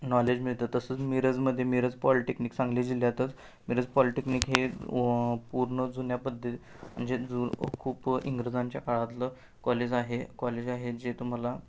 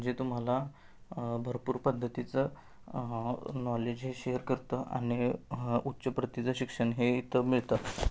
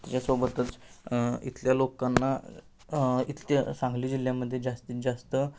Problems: constant background noise